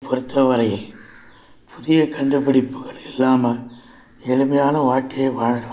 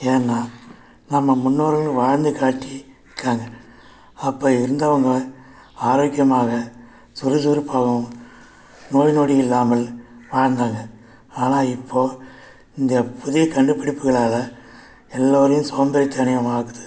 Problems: background sounds at intervals